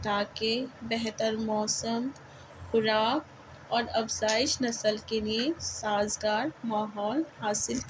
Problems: constant background noise